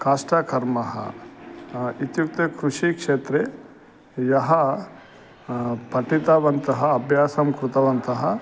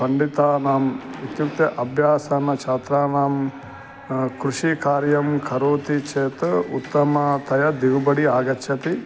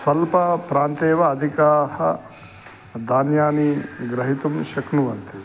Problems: constant background noise